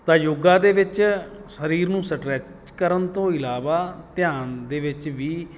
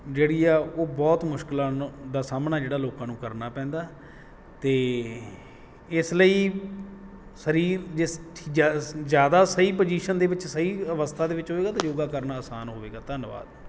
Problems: background sounds at intervals